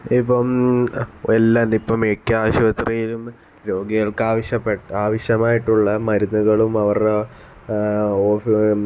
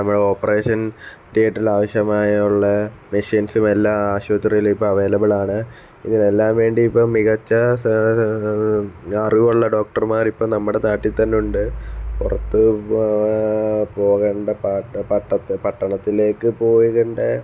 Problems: none marked